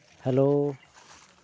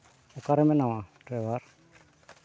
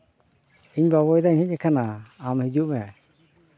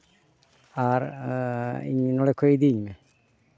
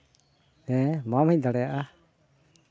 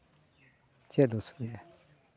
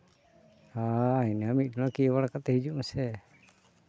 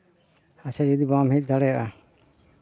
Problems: background sounds at intervals